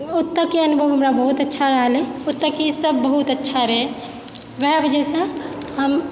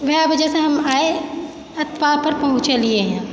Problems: background sounds at intervals, background conversations at intervals